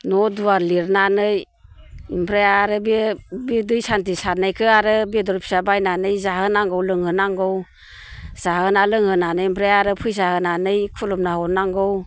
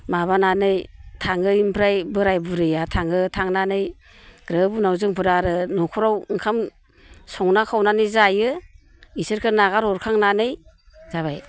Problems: none marked